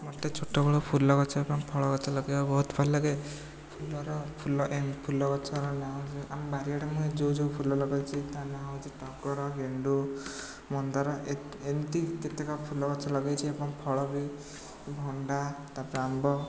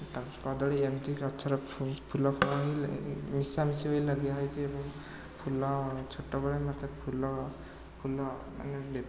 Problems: constant background noise, continuous background conversations